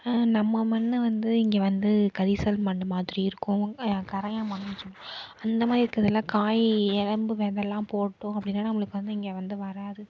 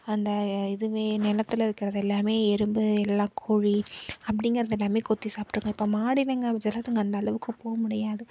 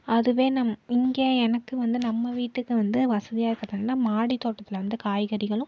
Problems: none marked